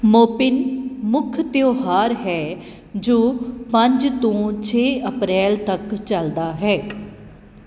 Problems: none marked